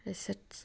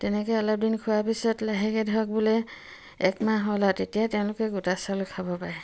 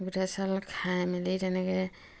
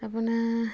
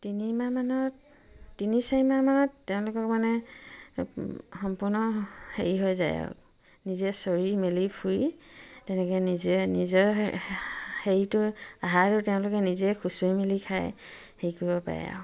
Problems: none marked